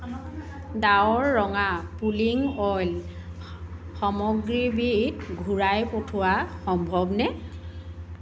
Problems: background sounds at intervals, continuous background conversations